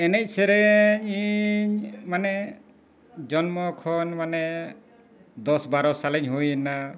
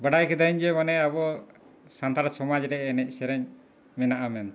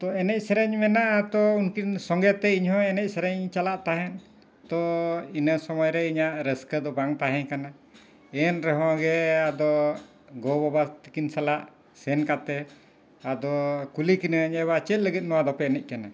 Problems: background sounds at intervals